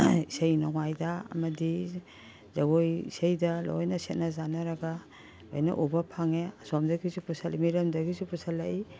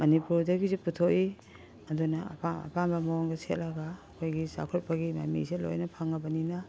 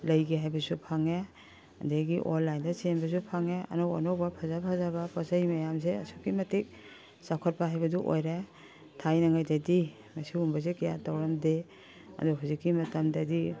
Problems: background sounds at intervals, background conversations at intervals